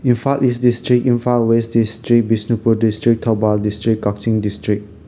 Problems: constant background noise